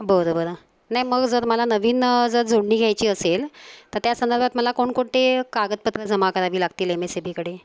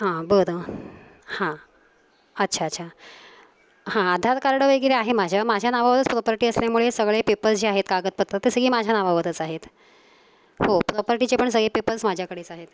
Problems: constant background noise